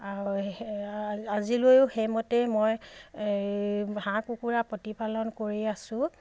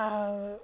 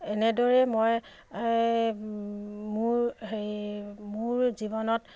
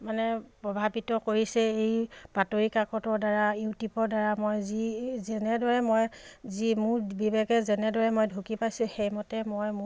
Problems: none marked